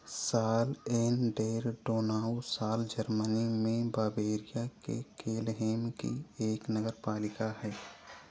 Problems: constant background noise